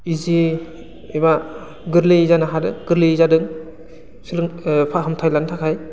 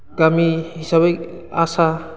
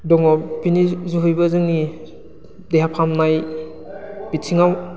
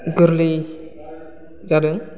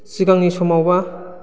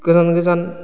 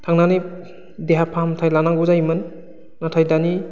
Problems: constant background noise